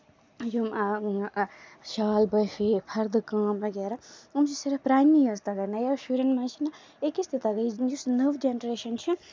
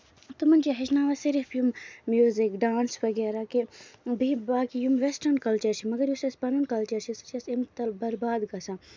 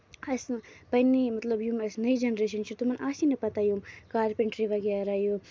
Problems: background sounds at intervals, low volume